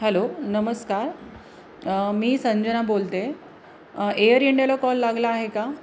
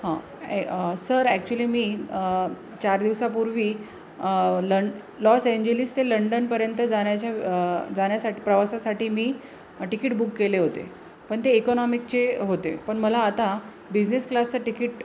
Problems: constant background noise, background conversations at intervals